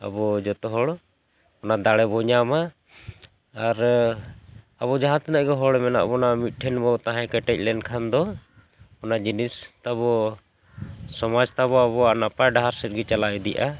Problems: constant background noise, background conversations at intervals